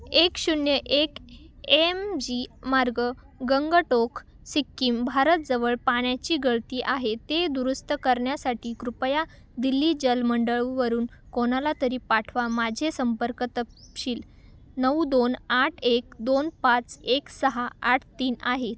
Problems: none marked